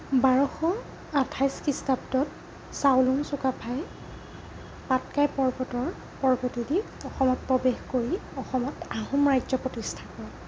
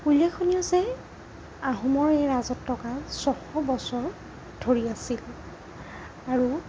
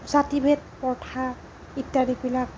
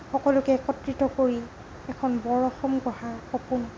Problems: constant background noise